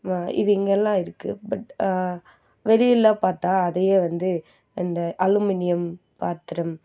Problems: none marked